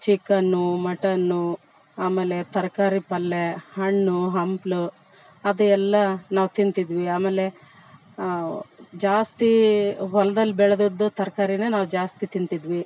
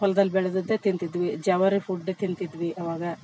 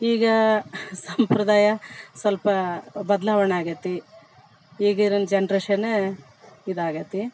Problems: background sounds at intervals